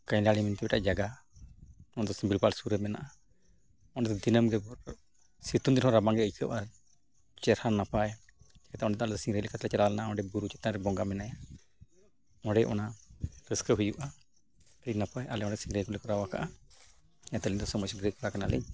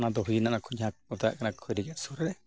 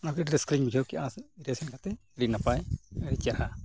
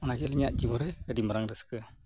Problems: background sounds at intervals, background conversations at intervals